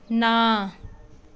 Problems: background sounds at intervals